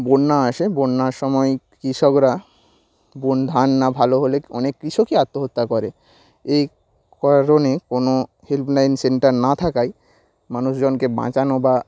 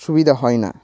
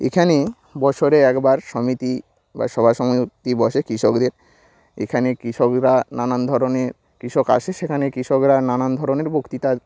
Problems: none marked